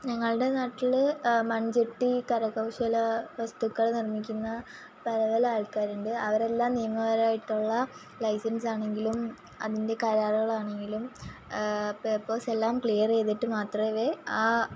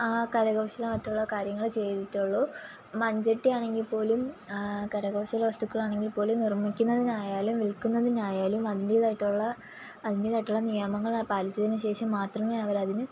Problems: constant background noise